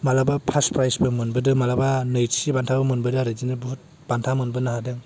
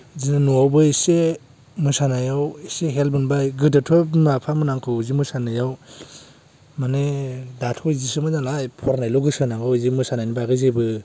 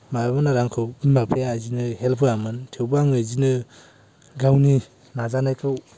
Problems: low volume